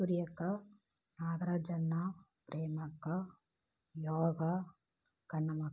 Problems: low volume